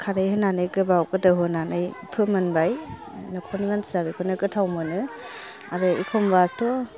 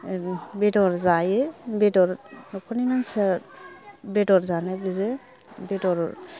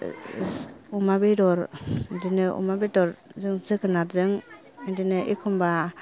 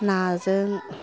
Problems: none marked